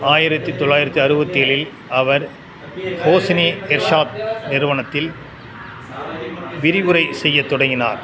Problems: constant background noise, background conversations at intervals